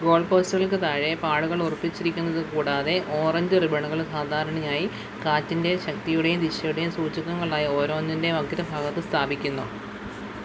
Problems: constant background noise, low volume